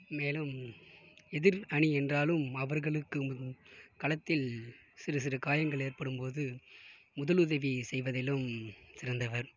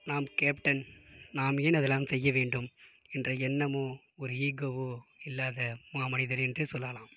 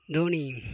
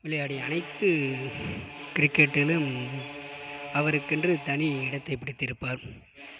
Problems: background sounds at intervals, low volume